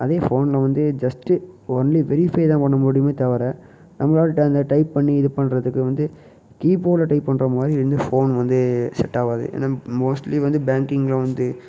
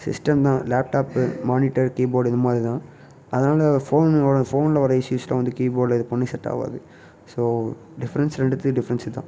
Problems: background sounds at intervals